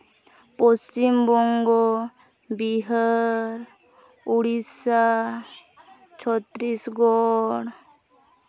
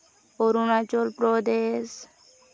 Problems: background sounds at intervals, background conversations at intervals